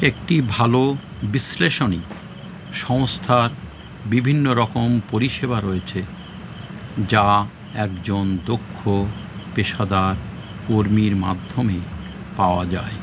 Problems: constant background noise